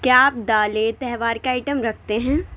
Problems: constant background noise